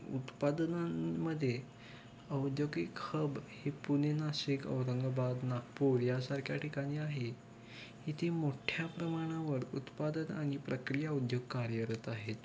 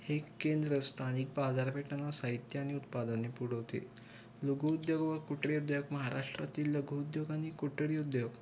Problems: constant background noise, background conversations at intervals